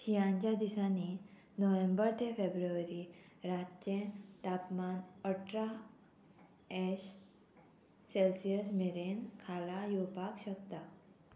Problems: none marked